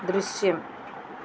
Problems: constant background noise